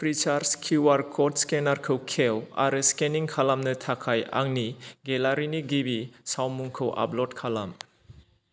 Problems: none marked